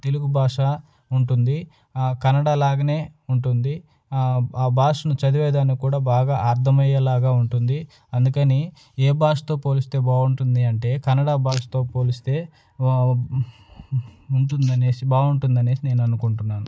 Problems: none marked